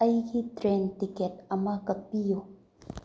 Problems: low volume